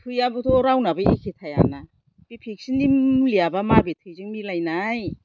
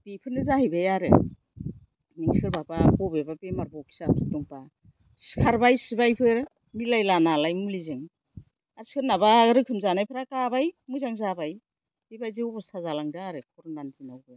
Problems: low volume